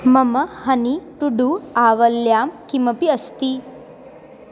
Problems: constant background noise